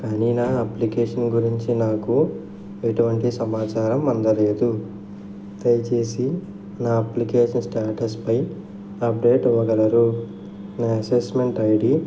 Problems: constant background noise